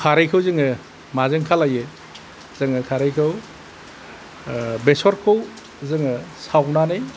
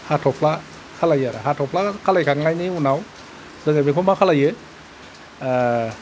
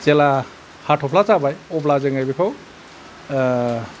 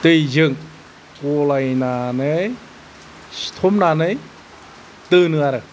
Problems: none marked